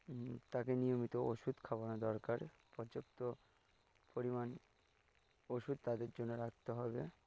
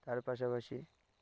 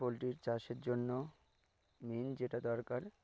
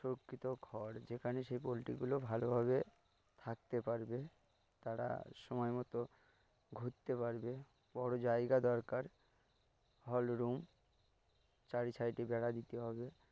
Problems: background sounds at intervals